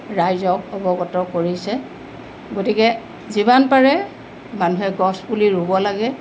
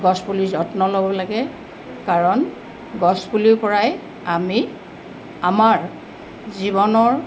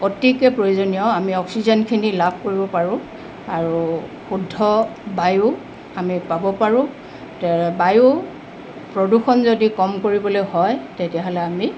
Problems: constant background noise